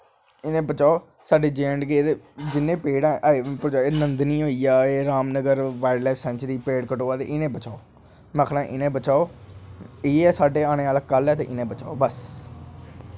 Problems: constant background noise